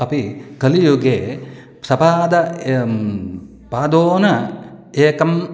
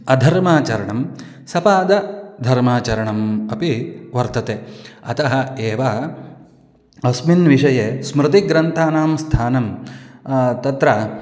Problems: none marked